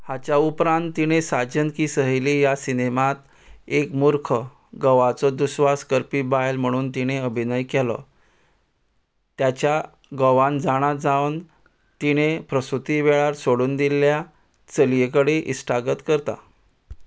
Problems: background sounds at intervals